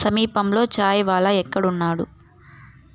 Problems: background sounds at intervals